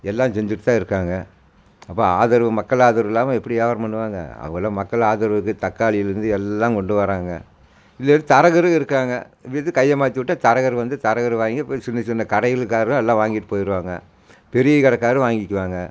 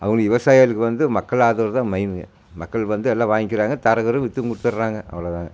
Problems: none marked